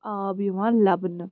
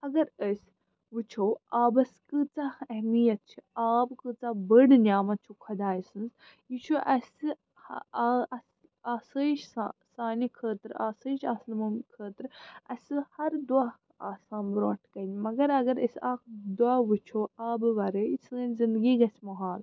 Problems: constant background noise